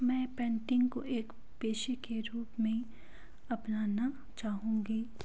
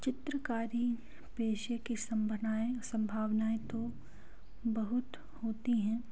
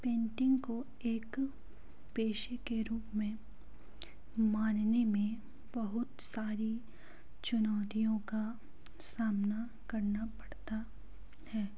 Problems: background sounds at intervals, low volume